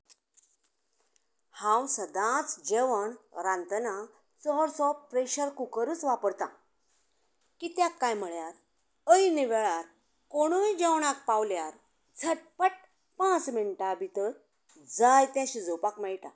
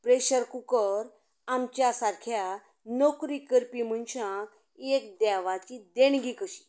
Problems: continuous background conversations